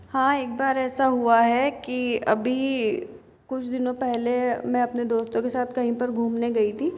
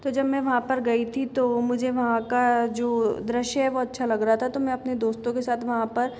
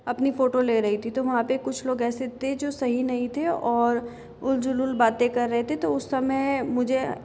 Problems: background sounds at intervals